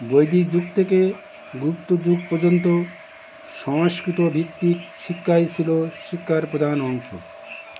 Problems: constant background noise, continuous background conversations